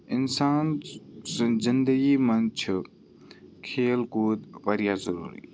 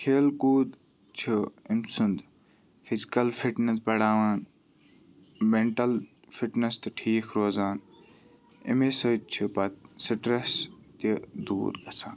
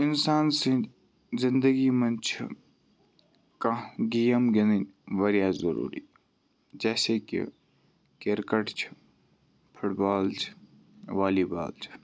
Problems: background sounds at intervals, background conversations at intervals